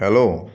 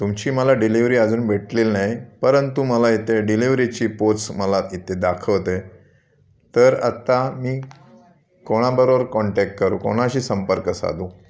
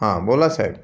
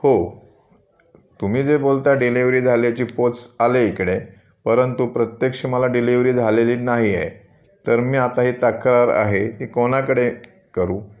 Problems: constant background noise, continuous background conversations